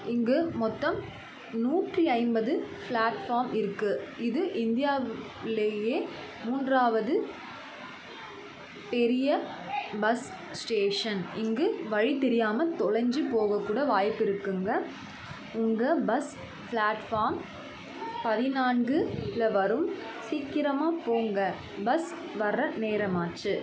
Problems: constant background noise, continuous background conversations